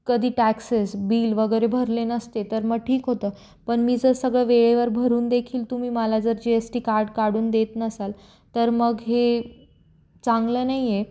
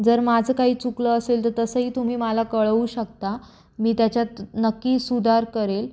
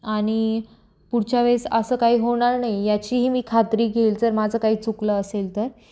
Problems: constant background noise, echo